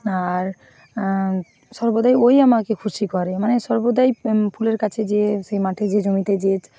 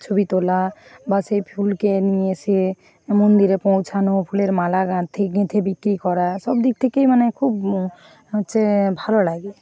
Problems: constant background noise, background conversations at intervals